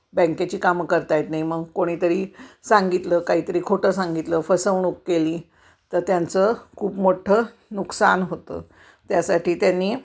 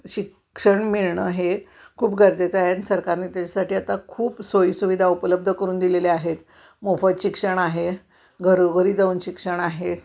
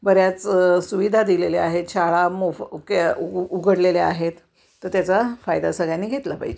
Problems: none marked